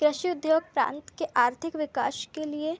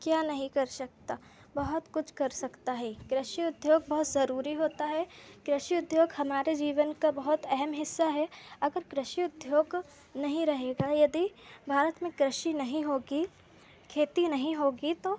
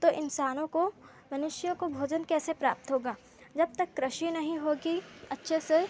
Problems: none marked